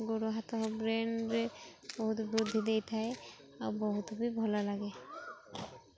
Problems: none marked